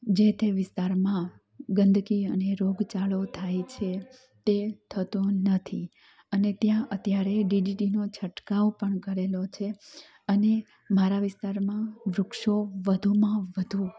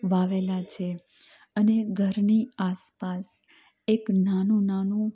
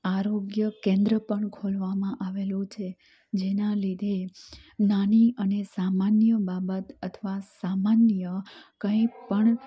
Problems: none marked